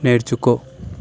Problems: constant background noise